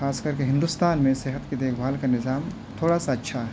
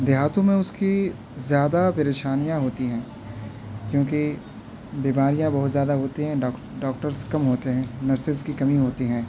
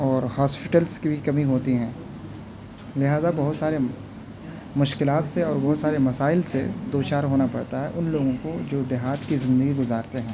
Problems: constant background noise